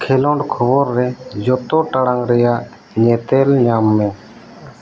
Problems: none marked